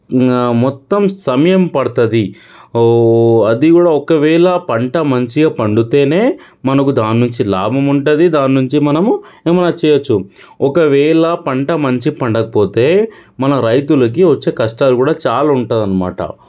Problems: none marked